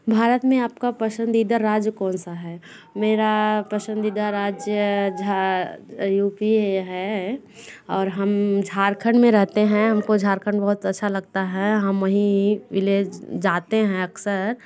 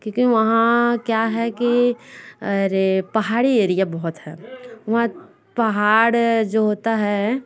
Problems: constant background noise, continuous background conversations